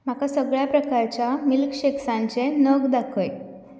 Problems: background sounds at intervals